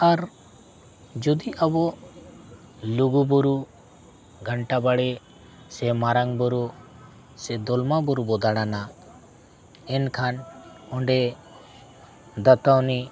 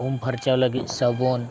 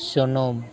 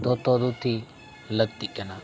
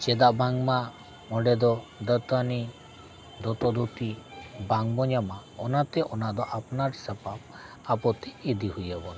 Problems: background sounds at intervals